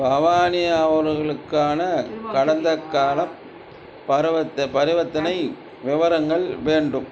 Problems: background conversations at intervals